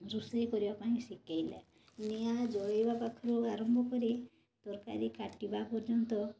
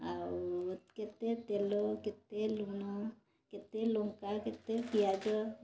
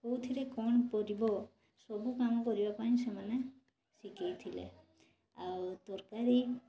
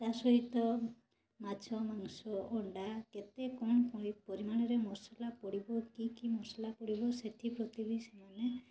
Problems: constant background noise, continuous background conversations